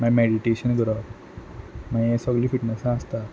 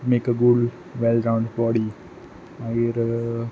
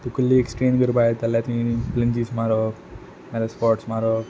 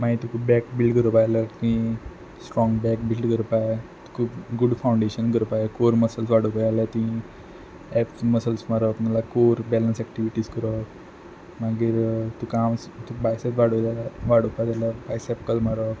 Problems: background sounds at intervals